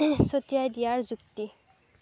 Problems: none marked